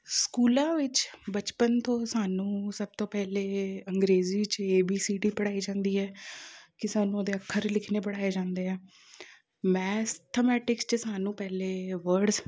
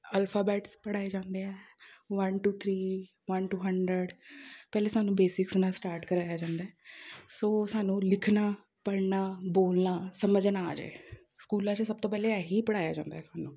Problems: none marked